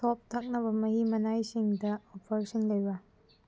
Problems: low volume